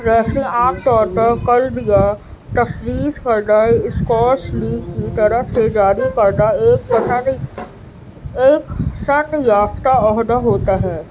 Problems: constant background noise